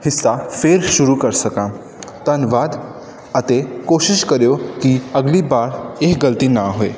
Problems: none marked